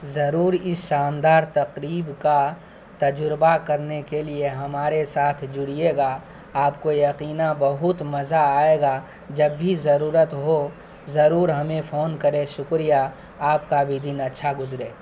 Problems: constant background noise